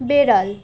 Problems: constant background noise